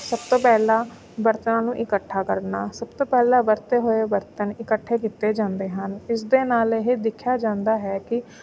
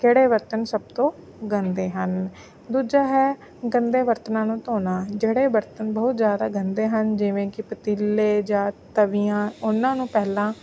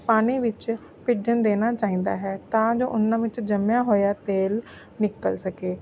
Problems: none marked